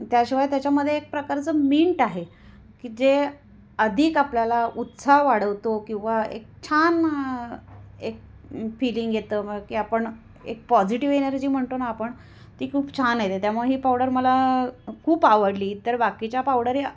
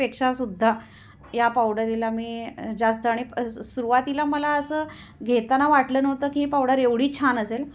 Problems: background sounds at intervals